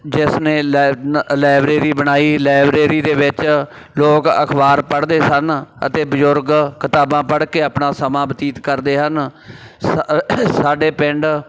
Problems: background sounds at intervals